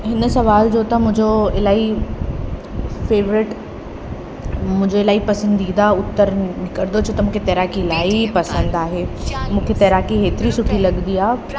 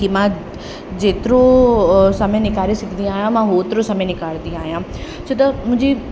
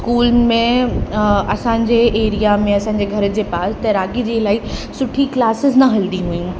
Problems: constant background noise, echo